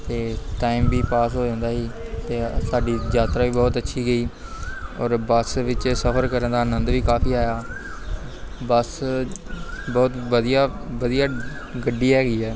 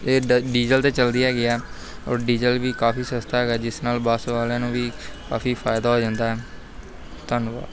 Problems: none marked